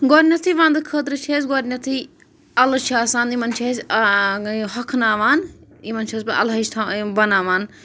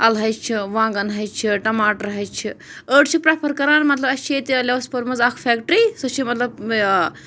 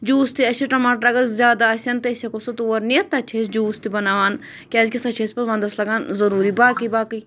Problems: none marked